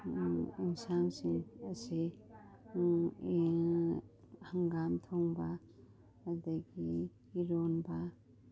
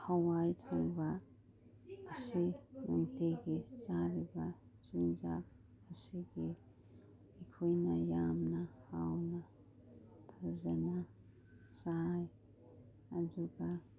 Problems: background sounds at intervals